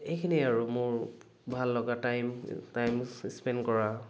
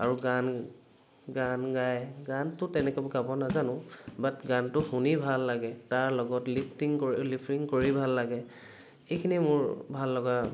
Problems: background sounds at intervals